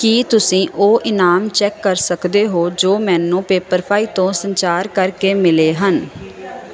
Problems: constant background noise